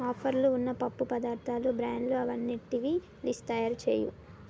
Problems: none marked